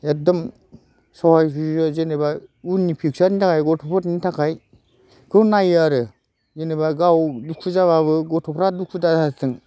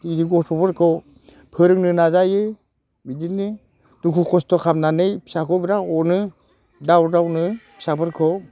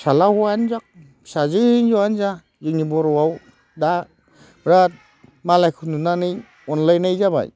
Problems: constant background noise